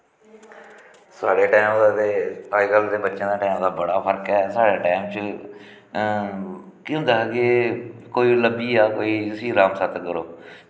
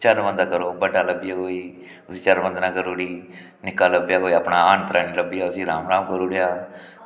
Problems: echo